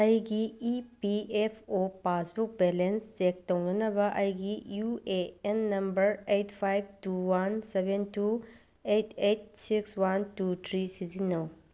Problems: none marked